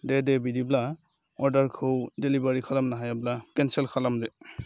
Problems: none marked